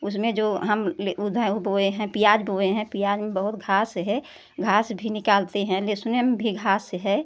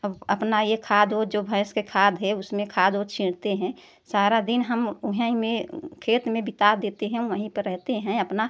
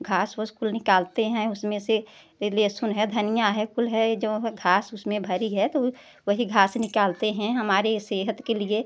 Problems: none marked